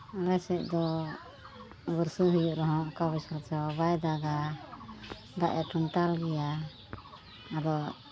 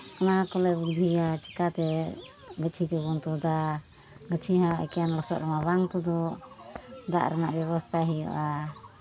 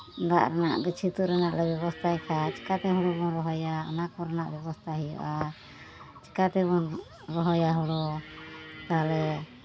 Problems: constant background noise